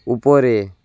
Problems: none marked